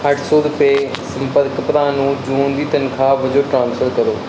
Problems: constant background noise